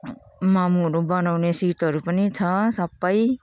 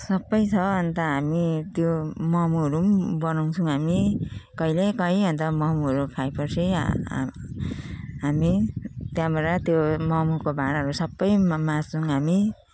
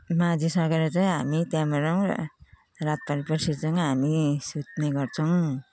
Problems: continuous background conversations